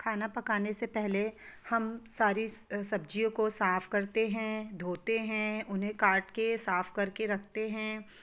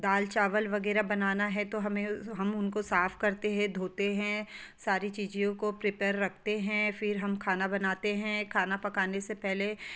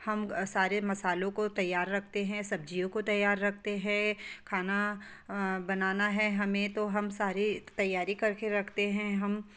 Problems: background sounds at intervals